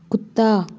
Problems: constant background noise